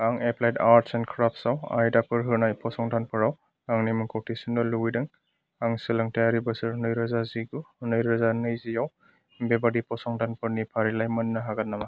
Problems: background sounds at intervals